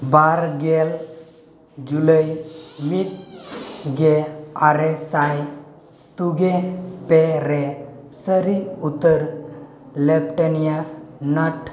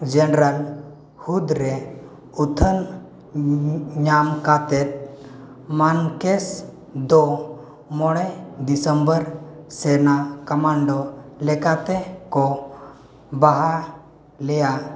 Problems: constant background noise, background conversations at intervals